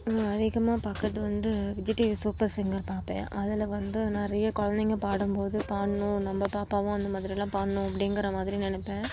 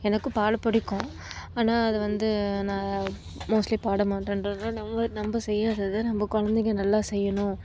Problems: background sounds at intervals, low volume